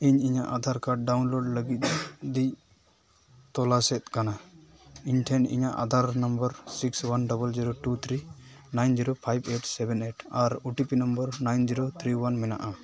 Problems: none marked